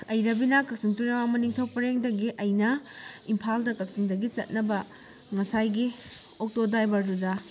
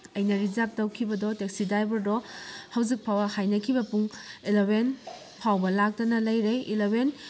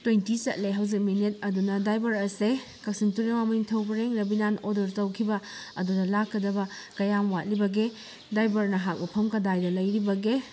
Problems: constant background noise